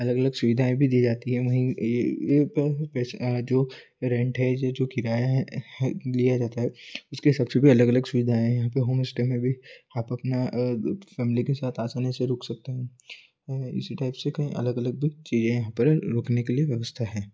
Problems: constant background noise